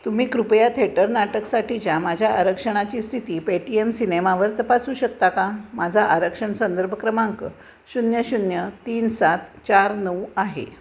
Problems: constant background noise